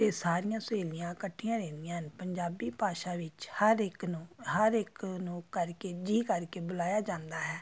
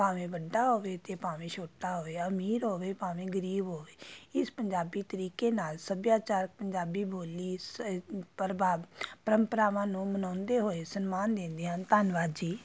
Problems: background sounds at intervals